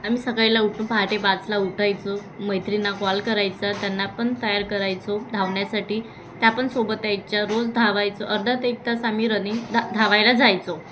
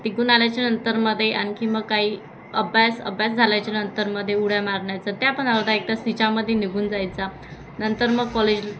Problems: constant background noise, continuous background conversations